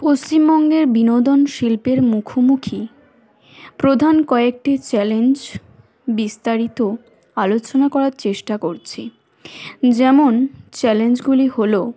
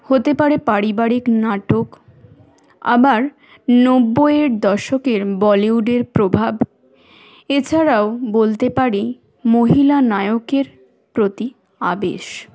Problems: constant background noise, background conversations at intervals